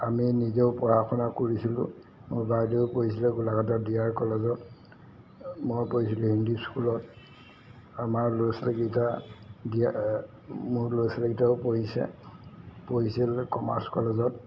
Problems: background sounds at intervals